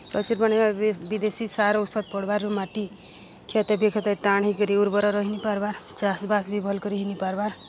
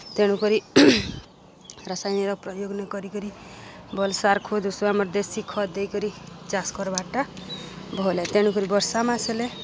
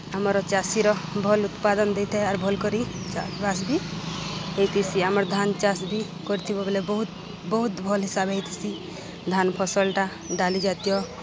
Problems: constant background noise, continuous background conversations